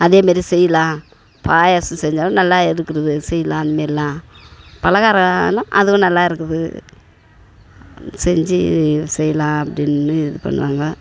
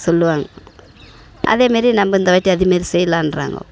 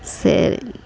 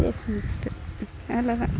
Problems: constant background noise, background conversations at intervals